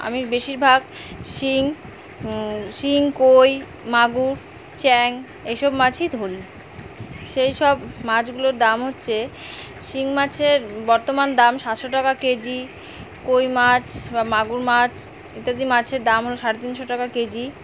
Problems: constant background noise